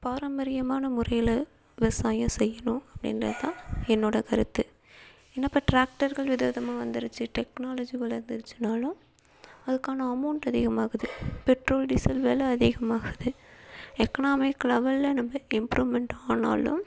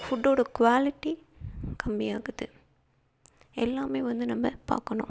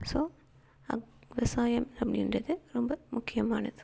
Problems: constant background noise